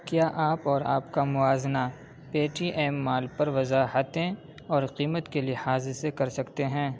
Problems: background sounds at intervals, low volume